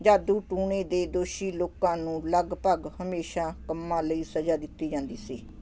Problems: constant background noise